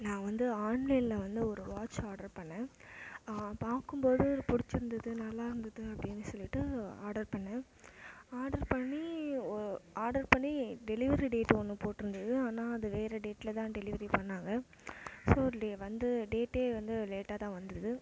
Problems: constant background noise, low volume